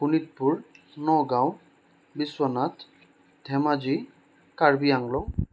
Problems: none marked